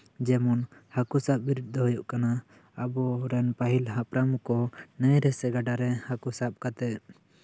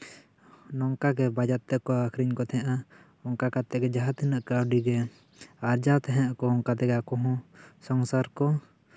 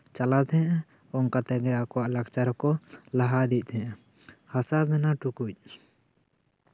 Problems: none marked